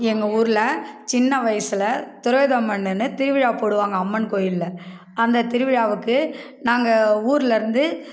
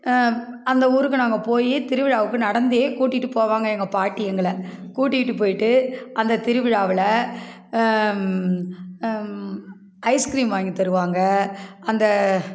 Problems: background sounds at intervals